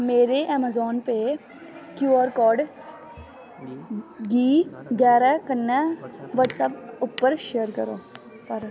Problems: constant background noise